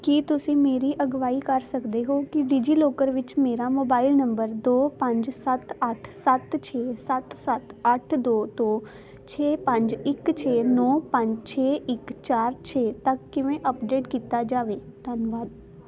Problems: constant background noise